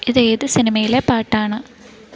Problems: background sounds at intervals